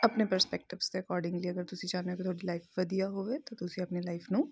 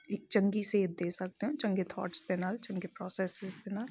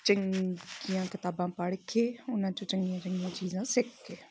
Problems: none marked